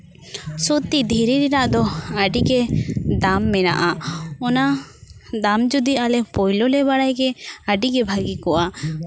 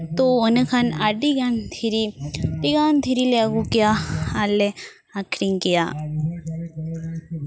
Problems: background sounds at intervals, background conversations at intervals